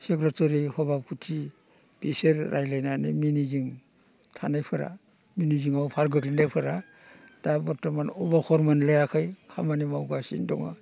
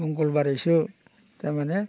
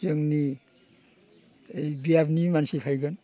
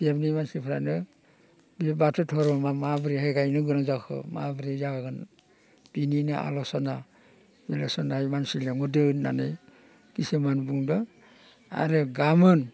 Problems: constant background noise